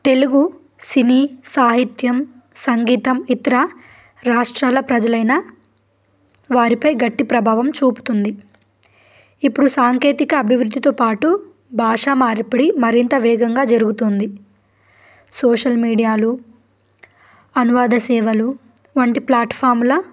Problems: background sounds at intervals